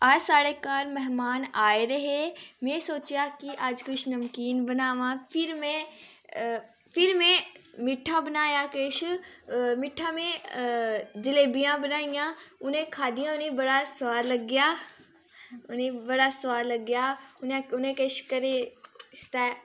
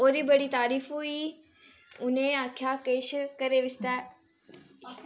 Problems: constant background noise, background conversations at intervals